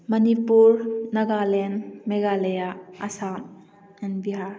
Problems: background sounds at intervals